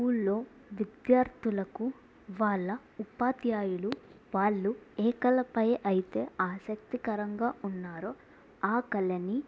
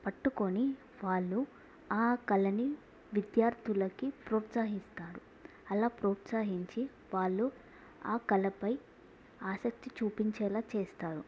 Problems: low volume